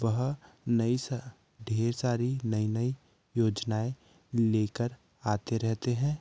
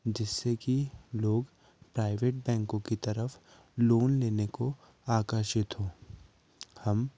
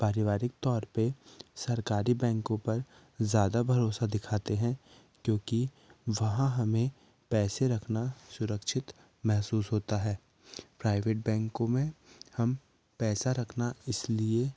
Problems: none marked